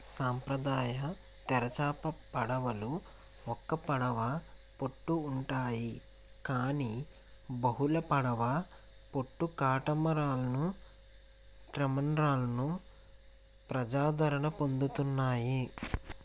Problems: constant background noise